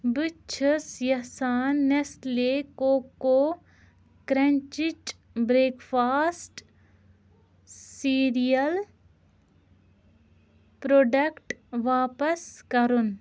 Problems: none marked